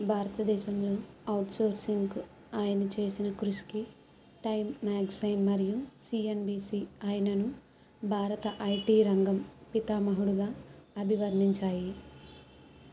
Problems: background sounds at intervals